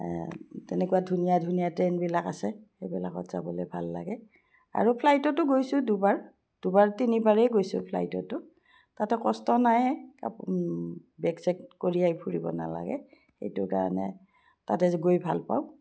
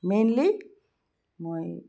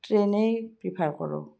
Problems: none marked